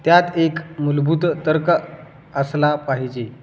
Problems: constant background noise, echo